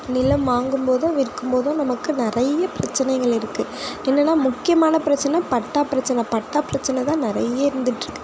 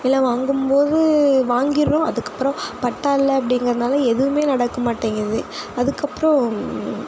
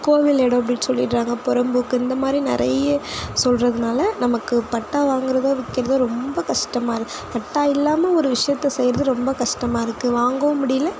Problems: constant background noise